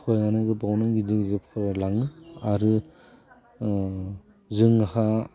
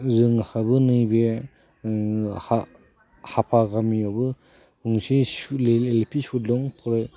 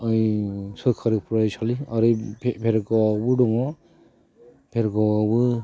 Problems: constant background noise